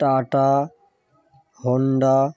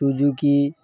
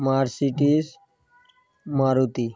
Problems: none marked